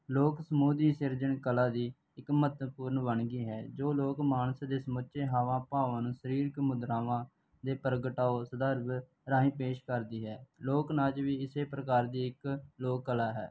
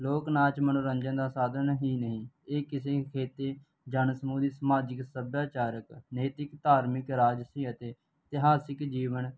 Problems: background sounds at intervals